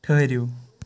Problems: constant background noise